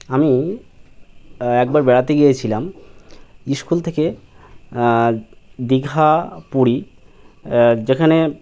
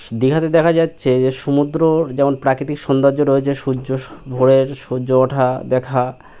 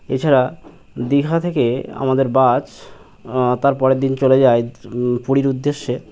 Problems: none marked